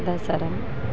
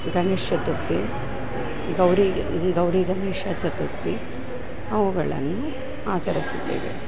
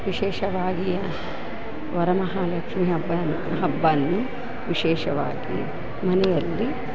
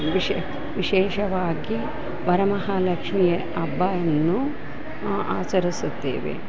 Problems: background sounds at intervals